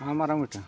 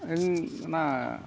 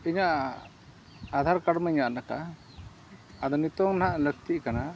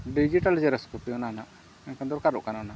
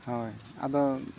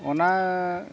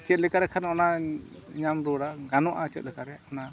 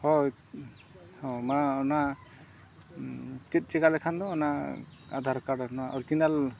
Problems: constant background noise, low volume